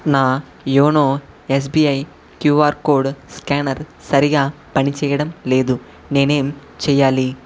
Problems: constant background noise